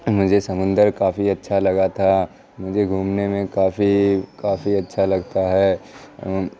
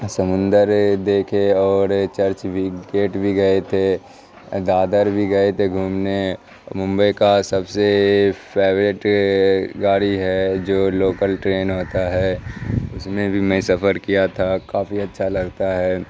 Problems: constant background noise, continuous background conversations